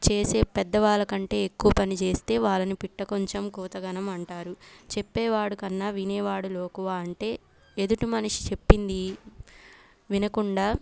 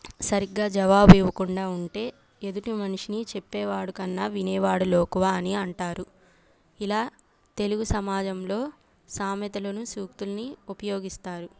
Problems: background sounds at intervals